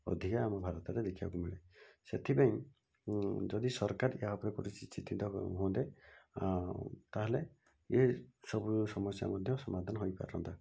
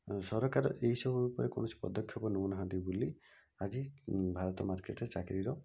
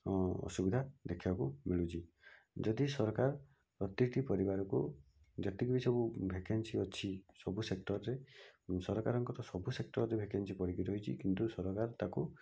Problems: low volume